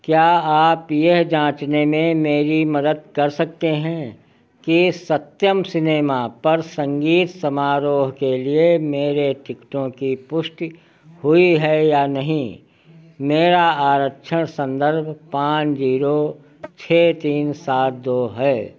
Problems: none marked